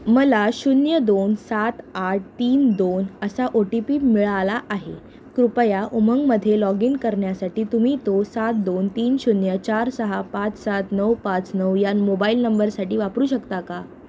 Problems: background sounds at intervals